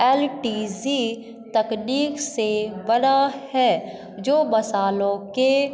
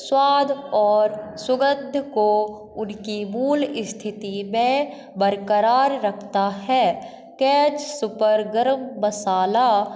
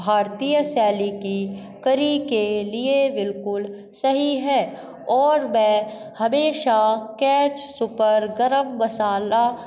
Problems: constant background noise, echo